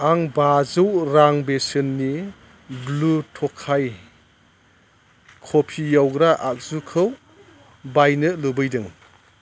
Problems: constant background noise